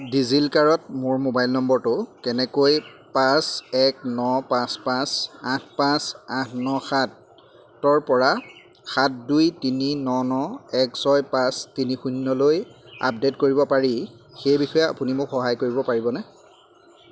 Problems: none marked